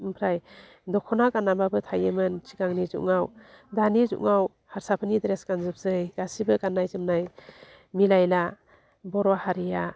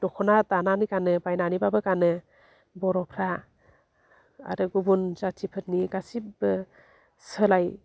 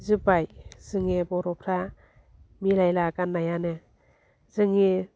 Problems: low volume